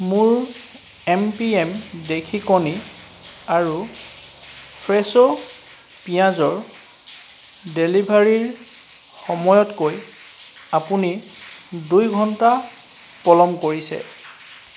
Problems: background sounds at intervals